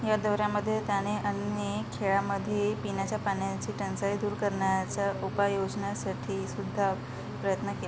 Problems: constant background noise, low volume